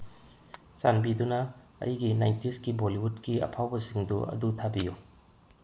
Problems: background sounds at intervals, low volume